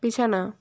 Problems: constant background noise